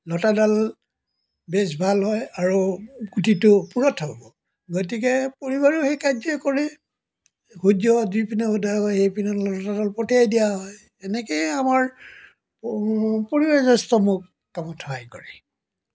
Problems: background sounds at intervals